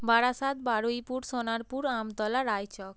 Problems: background sounds at intervals